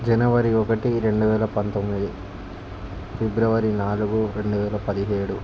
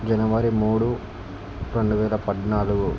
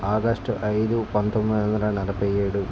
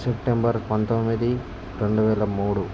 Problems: constant background noise